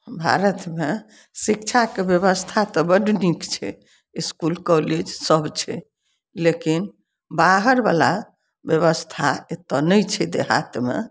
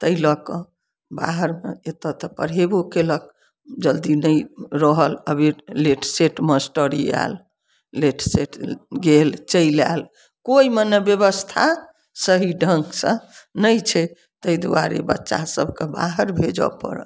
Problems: none marked